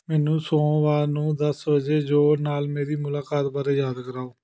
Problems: none marked